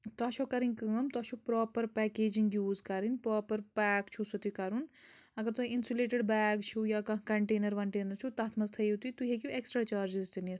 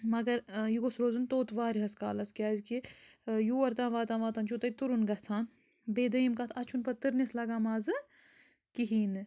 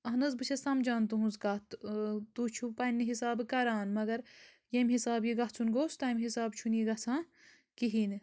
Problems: background sounds at intervals